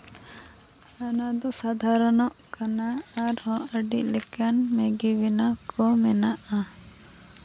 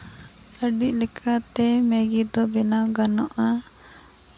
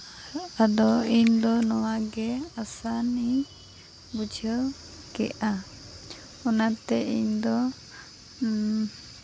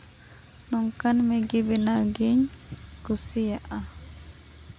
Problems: constant background noise, low volume